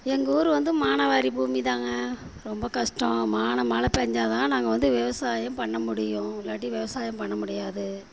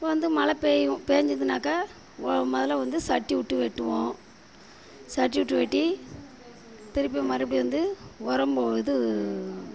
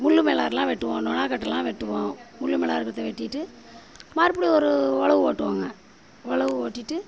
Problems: none marked